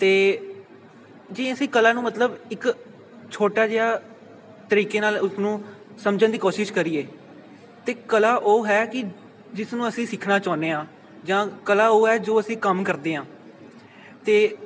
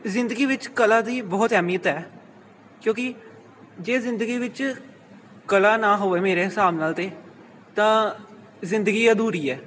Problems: background sounds at intervals